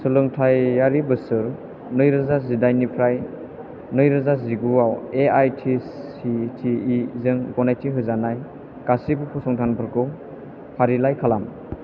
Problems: constant background noise